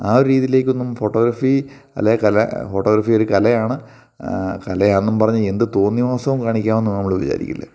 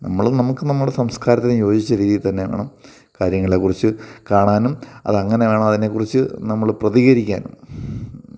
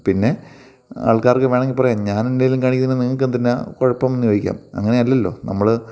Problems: none marked